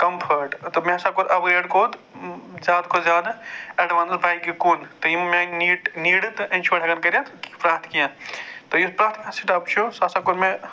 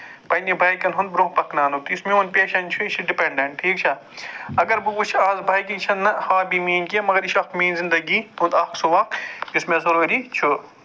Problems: constant background noise